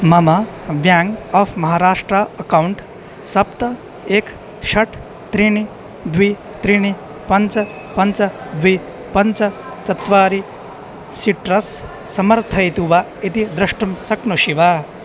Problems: constant background noise